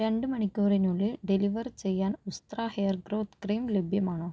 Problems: low volume